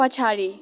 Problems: background sounds at intervals